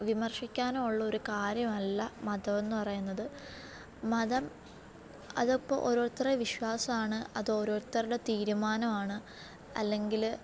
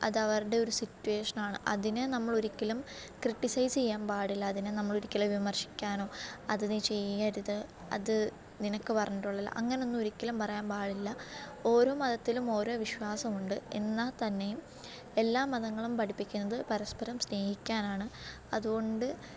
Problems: low volume